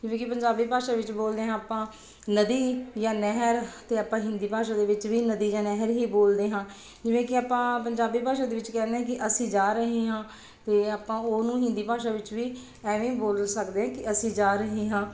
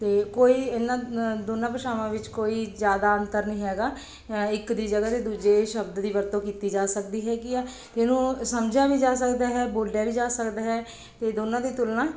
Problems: none marked